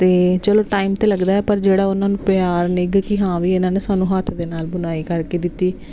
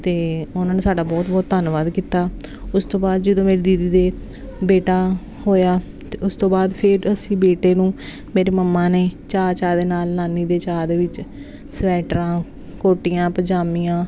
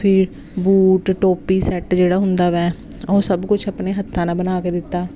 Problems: constant background noise